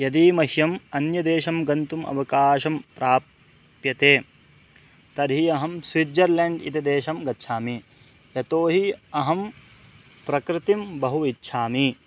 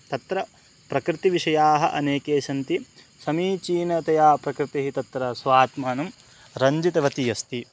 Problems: constant background noise